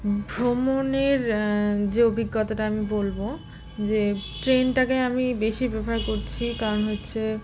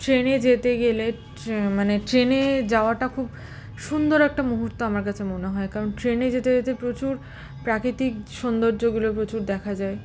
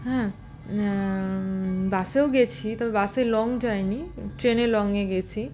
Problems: constant background noise